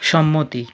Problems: constant background noise